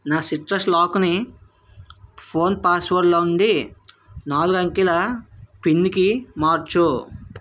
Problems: none marked